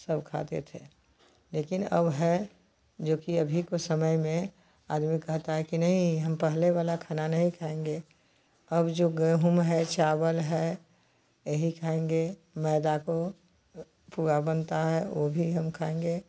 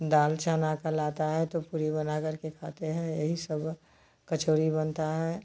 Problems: constant background noise